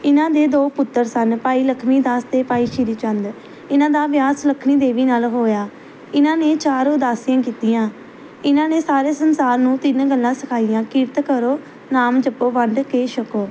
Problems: background sounds at intervals